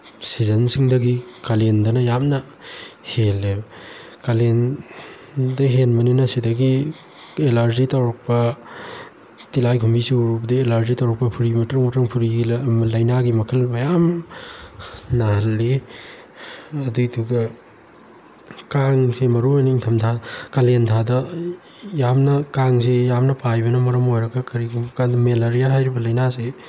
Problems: constant background noise